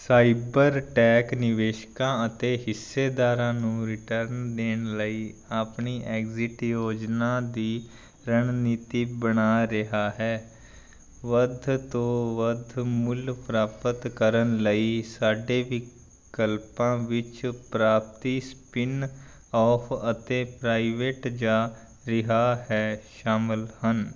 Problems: none marked